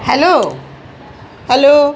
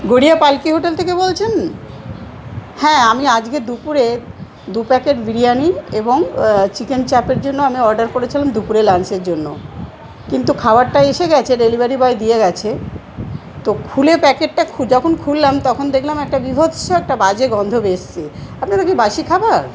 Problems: constant background noise, background conversations at intervals